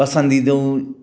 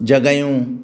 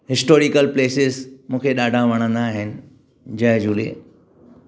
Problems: background sounds at intervals